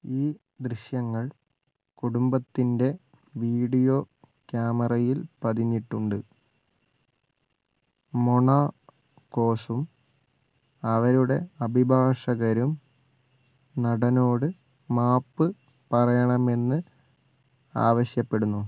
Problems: background sounds at intervals